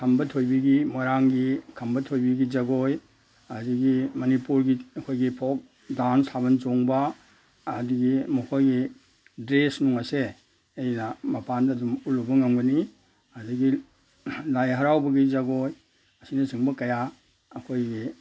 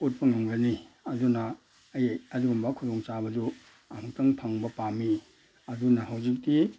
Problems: none marked